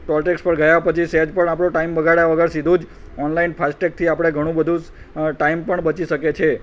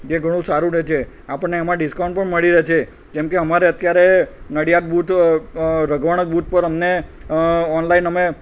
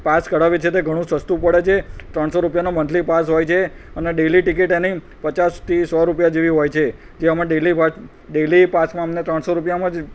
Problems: none marked